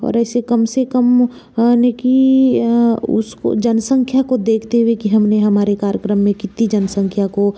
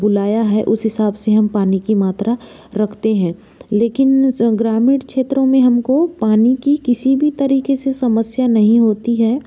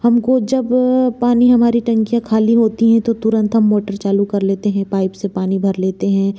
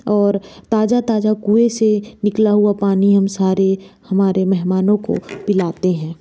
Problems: constant background noise